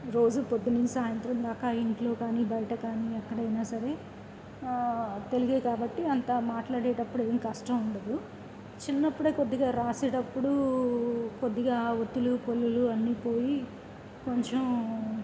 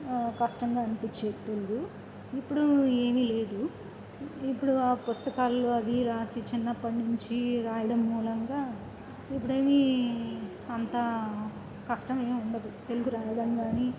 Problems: none marked